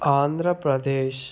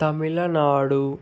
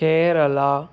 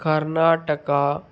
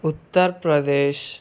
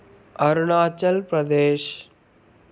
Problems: constant background noise